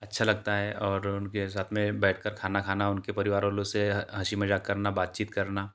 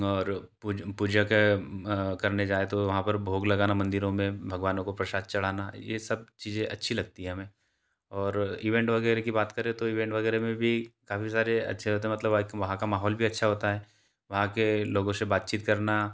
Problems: constant background noise